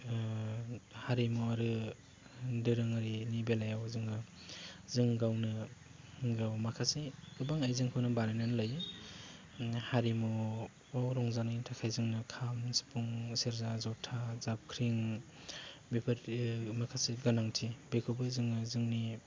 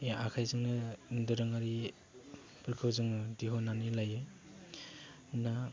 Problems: low volume